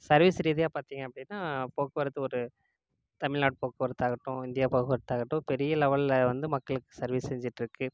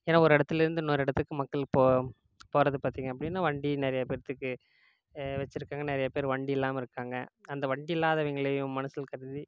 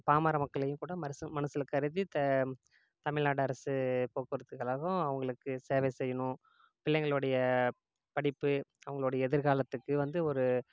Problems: none marked